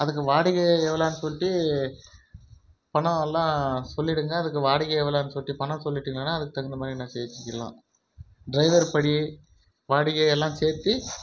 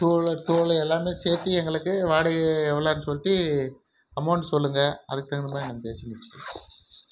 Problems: background sounds at intervals